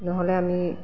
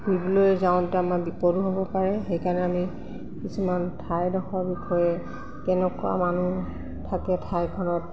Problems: constant background noise, background conversations at intervals